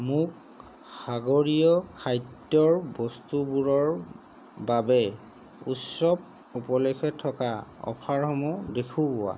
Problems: constant background noise